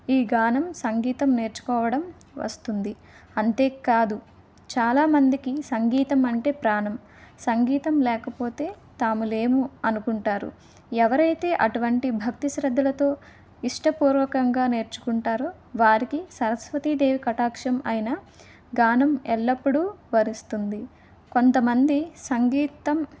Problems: none marked